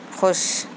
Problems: constant background noise